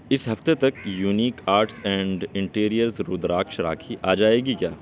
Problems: background sounds at intervals, background conversations at intervals